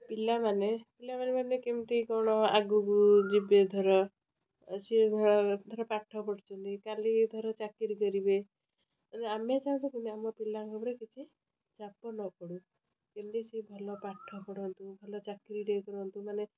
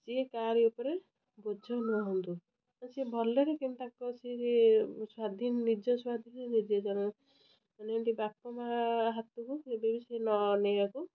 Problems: constant background noise